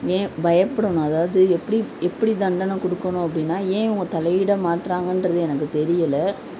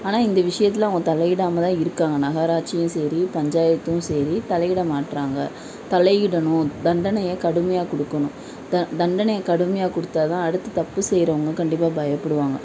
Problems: none marked